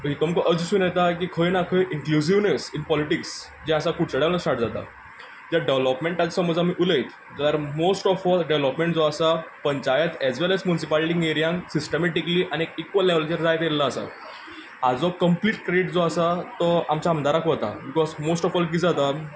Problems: background sounds at intervals